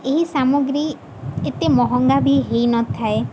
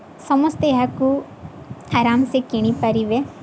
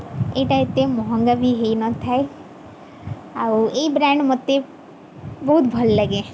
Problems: none marked